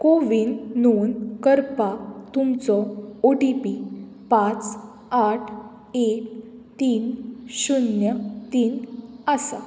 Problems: constant background noise